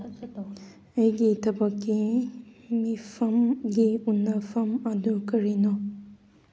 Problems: background conversations at intervals